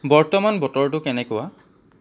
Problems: low volume